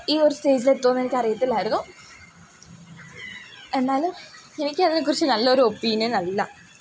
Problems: background sounds at intervals